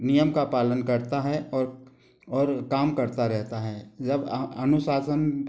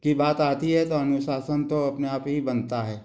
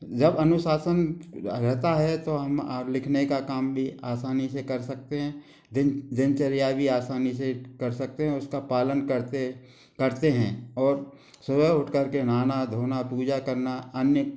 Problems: background sounds at intervals